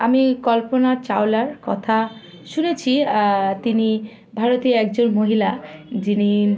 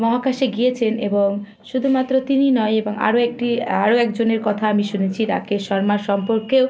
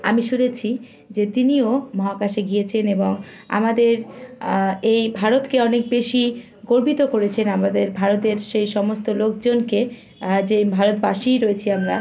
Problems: none marked